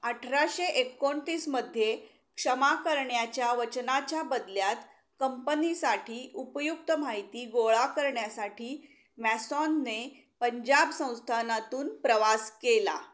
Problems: constant background noise